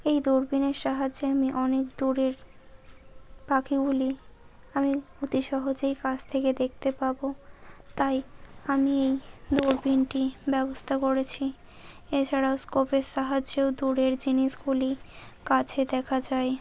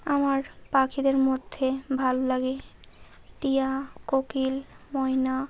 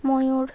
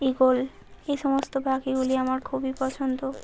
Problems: none marked